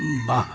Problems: background sounds at intervals